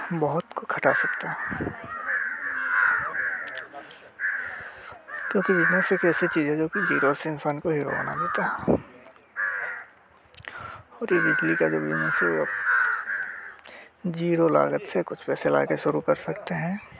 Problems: constant background noise